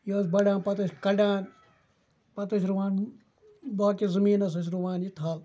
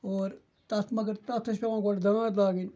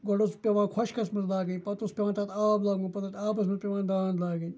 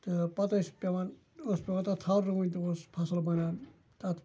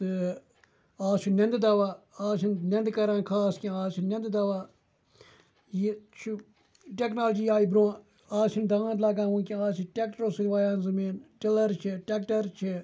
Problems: constant background noise, continuous background conversations